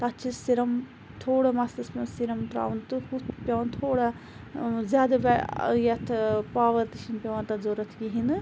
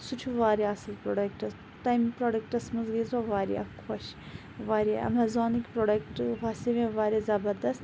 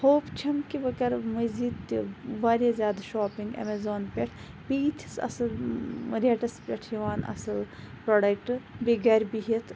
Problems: constant background noise